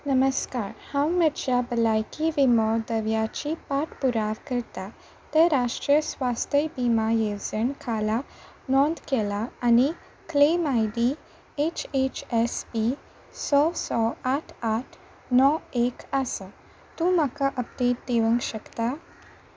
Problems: none marked